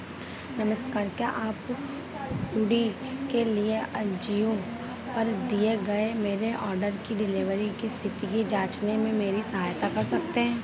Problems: constant background noise